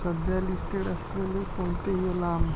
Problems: constant background noise, low volume